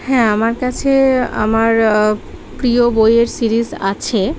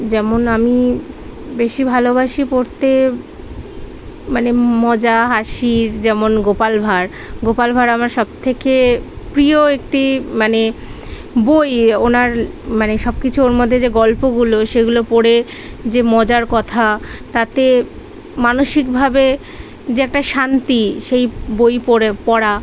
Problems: constant background noise, continuous background conversations